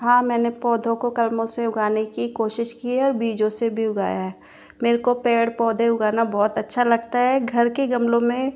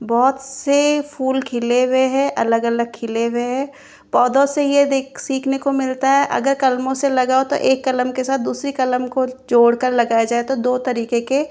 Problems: constant background noise